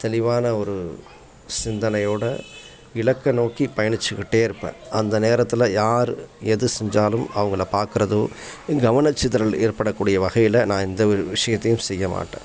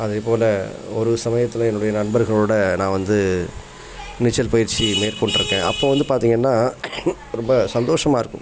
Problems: background conversations at intervals